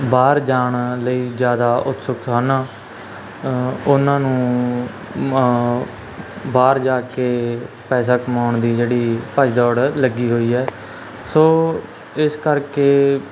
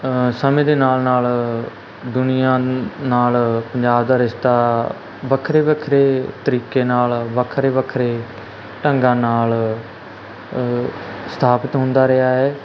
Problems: constant background noise